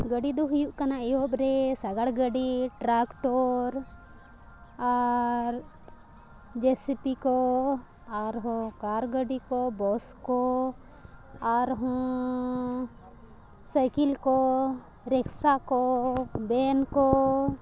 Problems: constant background noise